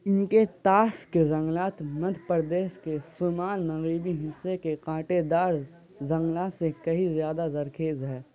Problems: constant background noise